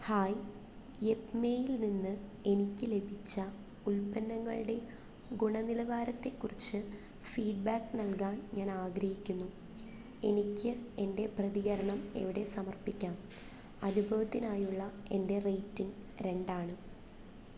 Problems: constant background noise, low volume